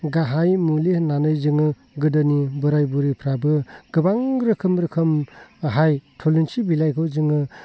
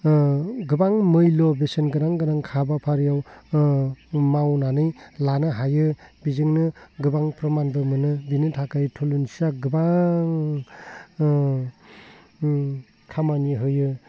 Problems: low volume